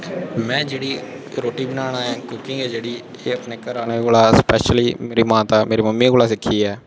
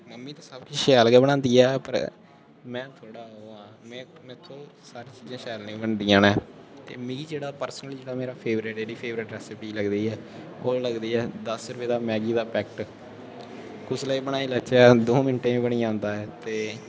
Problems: constant background noise